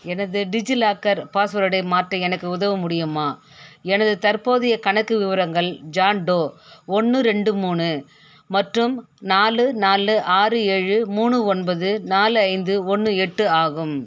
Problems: background sounds at intervals